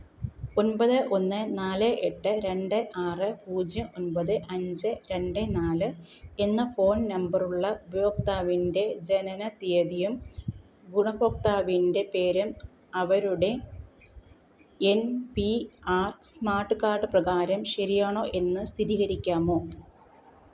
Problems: background sounds at intervals